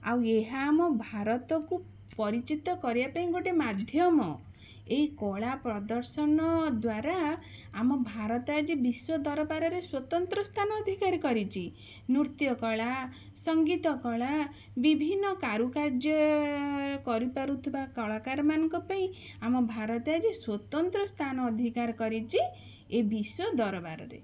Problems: none marked